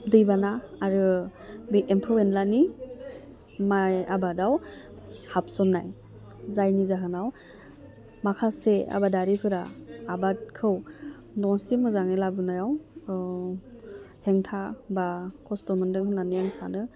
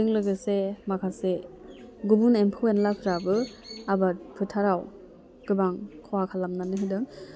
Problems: low volume